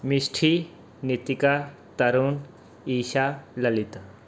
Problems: background sounds at intervals